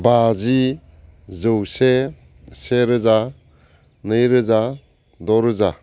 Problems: constant background noise